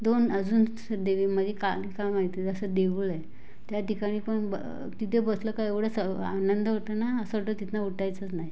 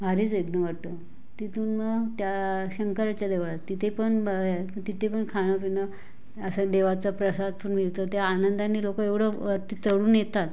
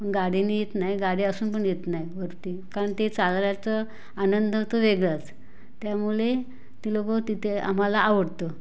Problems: background sounds at intervals